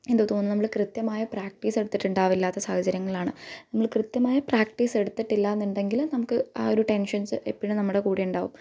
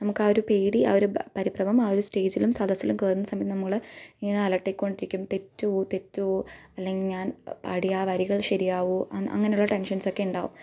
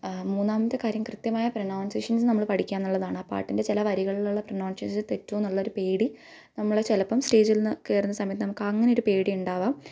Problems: none marked